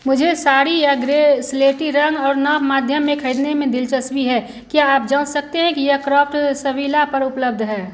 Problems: constant background noise